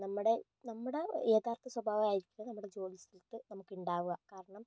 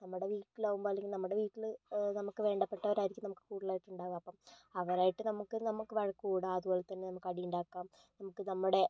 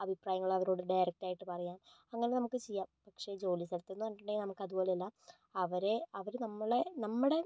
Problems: none marked